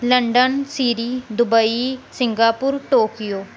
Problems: background sounds at intervals